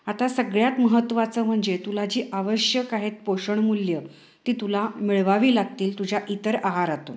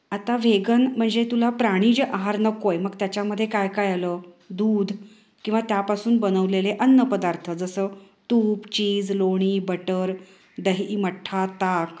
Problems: none marked